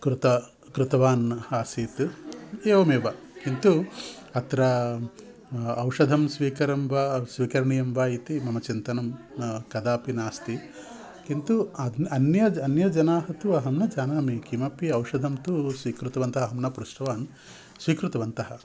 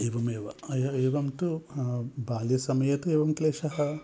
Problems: background sounds at intervals